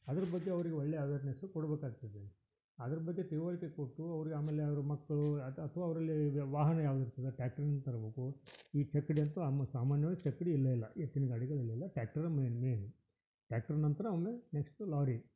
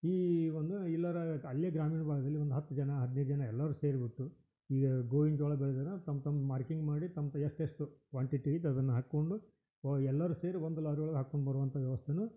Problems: none marked